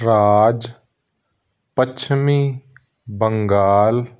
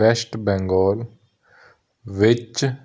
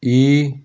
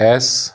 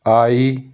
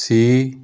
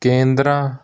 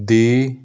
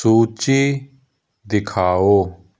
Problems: constant background noise